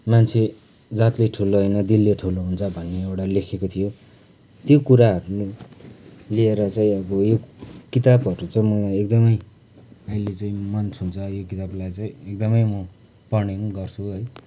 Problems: background sounds at intervals